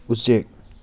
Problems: none marked